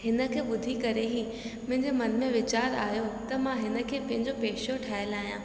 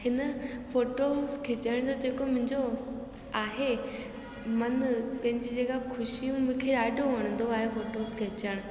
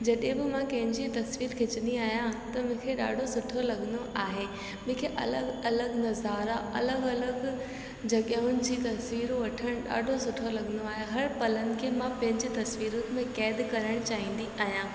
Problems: constant background noise, echo